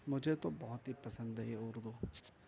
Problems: constant background noise, background conversations at intervals